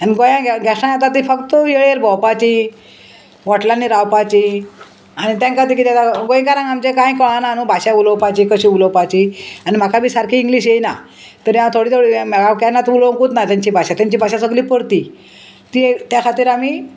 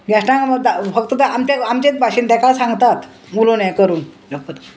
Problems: constant background noise